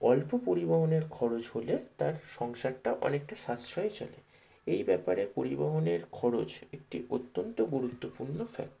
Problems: low volume